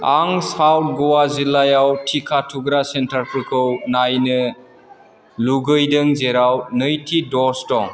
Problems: constant background noise